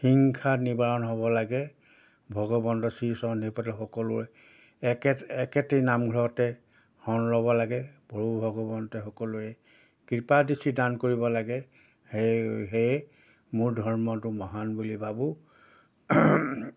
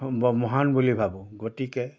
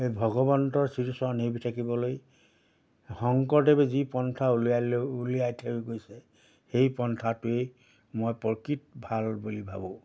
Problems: background sounds at intervals